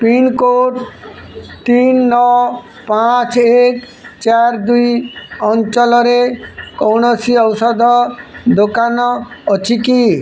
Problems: constant background noise